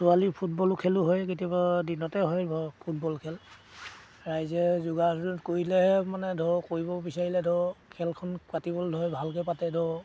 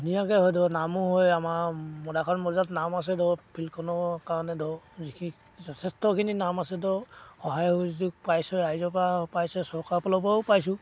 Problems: constant background noise, background conversations at intervals